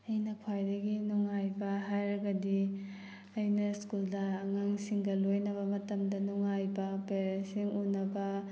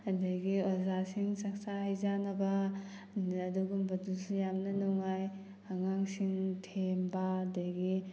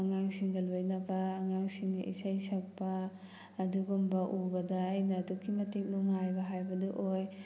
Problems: background sounds at intervals